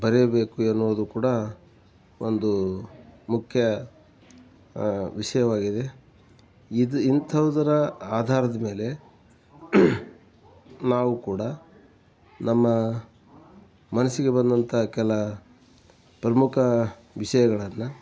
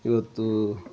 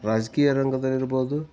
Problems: background sounds at intervals